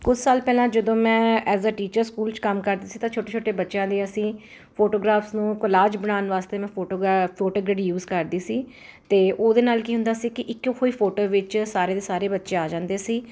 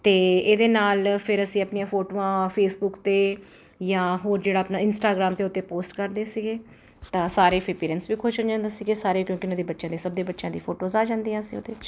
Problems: none marked